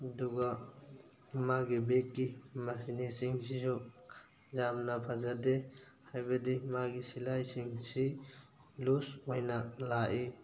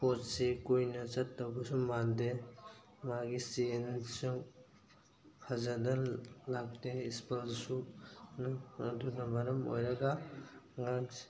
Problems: background sounds at intervals